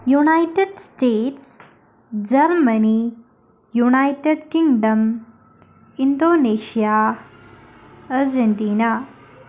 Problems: none marked